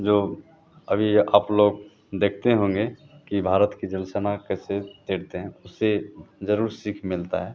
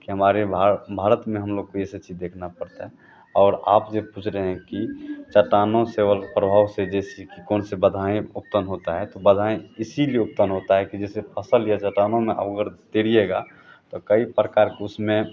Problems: none marked